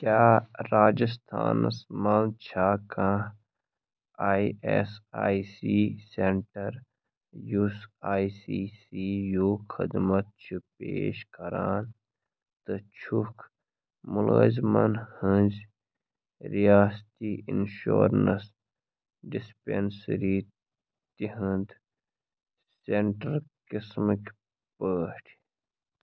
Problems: none marked